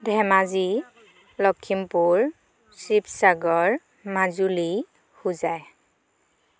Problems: background sounds at intervals, background conversations at intervals